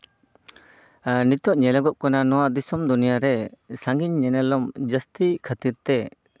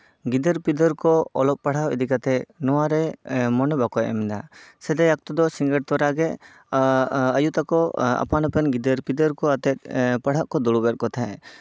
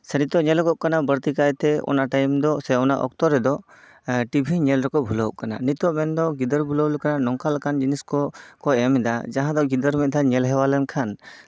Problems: background sounds at intervals